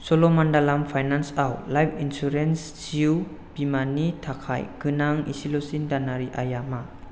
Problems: none marked